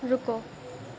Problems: background sounds at intervals, low volume